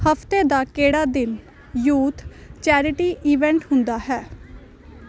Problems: none marked